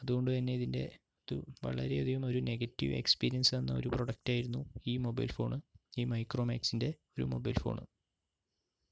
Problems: background sounds at intervals, low volume